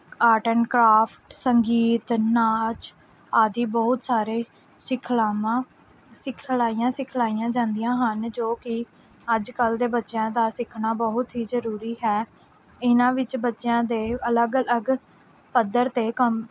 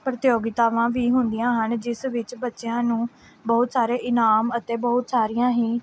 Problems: background sounds at intervals